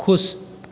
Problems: constant background noise